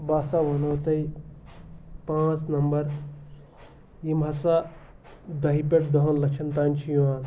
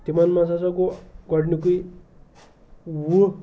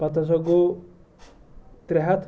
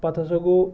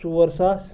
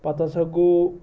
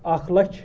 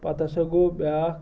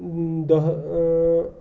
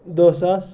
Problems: background conversations at intervals